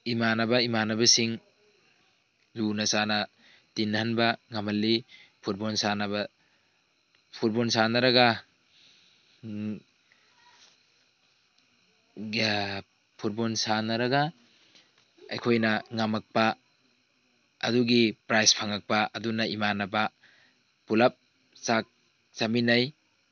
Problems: background sounds at intervals